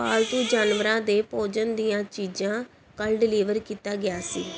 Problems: background conversations at intervals